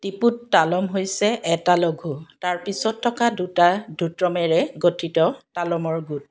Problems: background sounds at intervals, background conversations at intervals